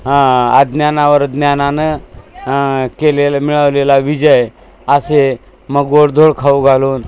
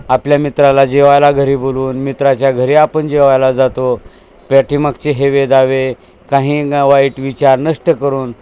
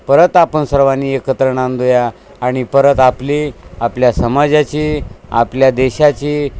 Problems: constant background noise, background conversations at intervals